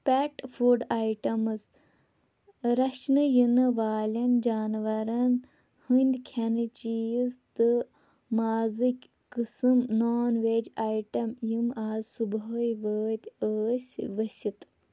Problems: constant background noise